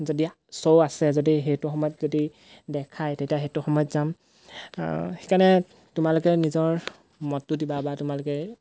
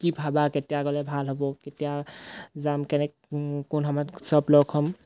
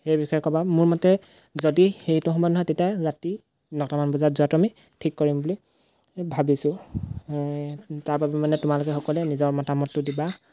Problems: background sounds at intervals